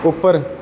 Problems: background sounds at intervals